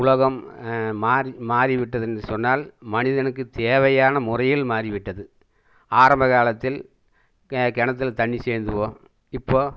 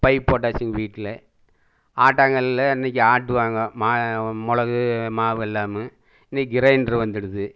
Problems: none marked